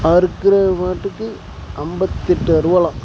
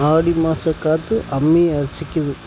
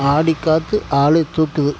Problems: constant background noise